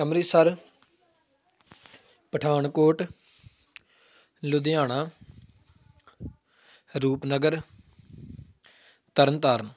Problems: none marked